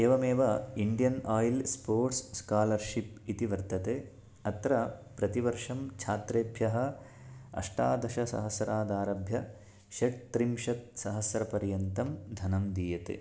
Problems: none marked